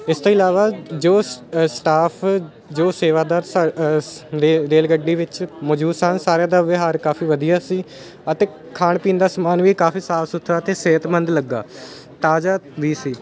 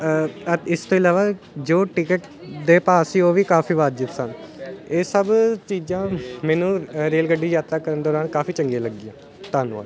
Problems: constant background noise